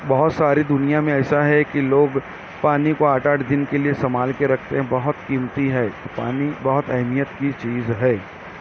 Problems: background sounds at intervals